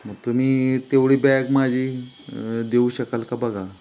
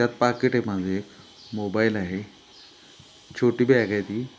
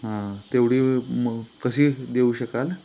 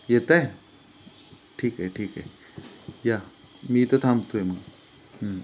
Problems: background sounds at intervals